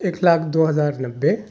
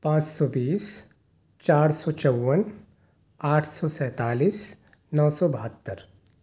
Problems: none marked